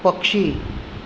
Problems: none marked